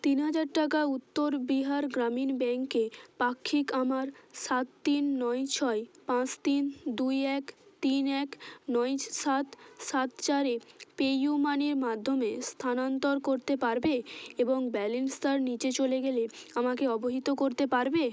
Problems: constant background noise, background conversations at intervals